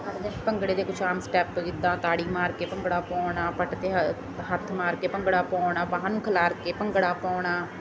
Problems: constant background noise